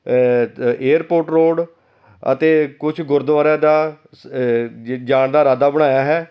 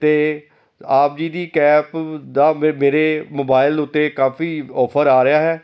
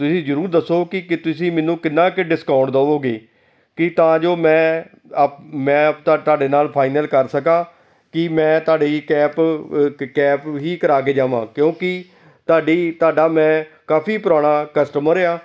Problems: none marked